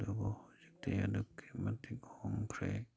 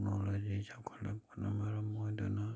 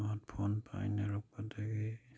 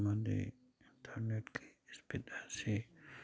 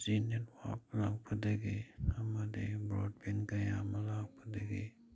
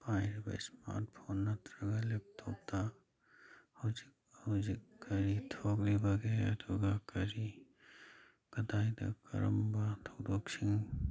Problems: none marked